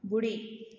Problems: echo